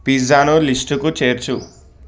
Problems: background sounds at intervals